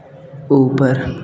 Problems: constant background noise